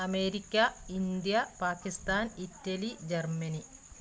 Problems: constant background noise